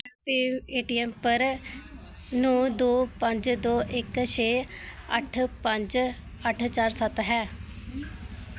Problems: background sounds at intervals